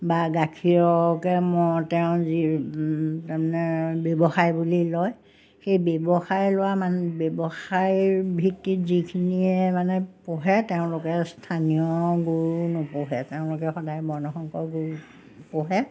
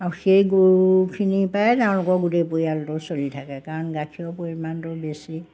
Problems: none marked